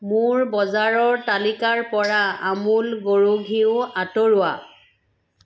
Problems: constant background noise